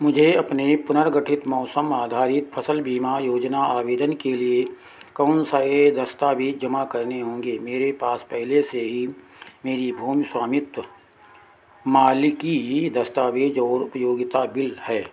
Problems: constant background noise